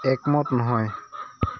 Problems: none marked